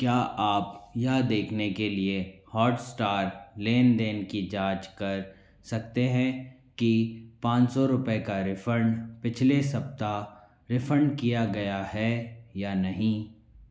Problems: background sounds at intervals, echo